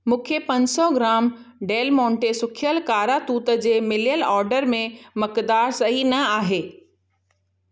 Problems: none marked